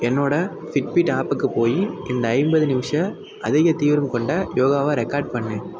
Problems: constant background noise